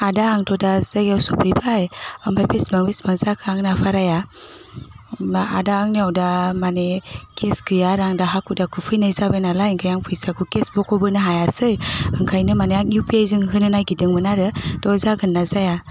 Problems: constant background noise